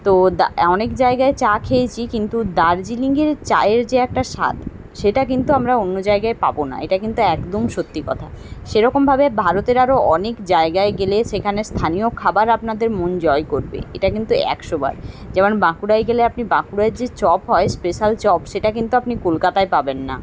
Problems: background sounds at intervals